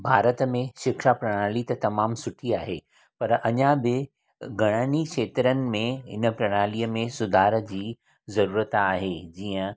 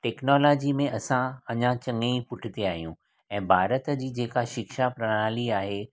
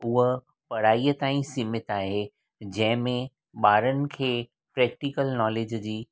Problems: background sounds at intervals